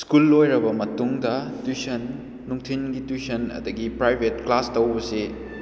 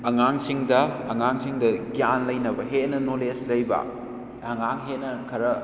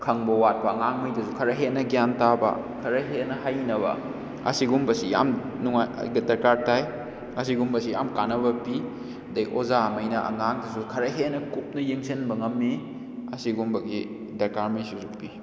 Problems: background sounds at intervals